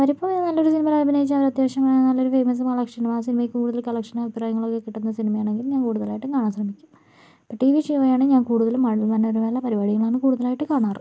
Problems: none marked